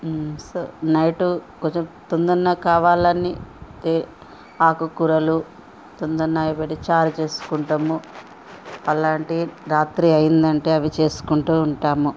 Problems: background conversations at intervals